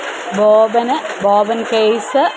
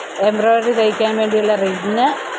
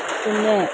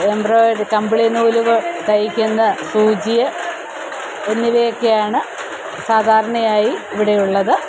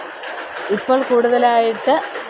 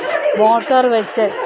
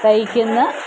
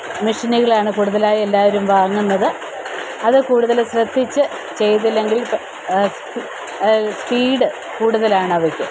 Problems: constant background noise